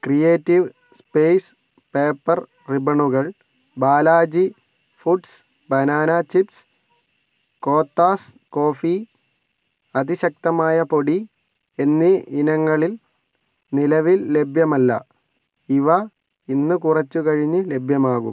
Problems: none marked